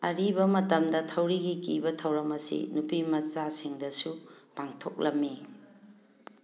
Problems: background sounds at intervals